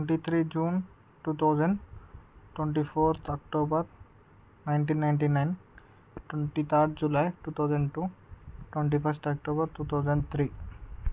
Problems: none marked